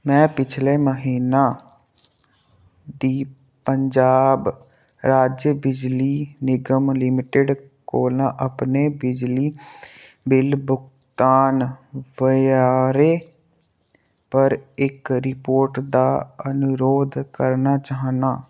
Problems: low volume